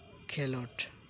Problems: constant background noise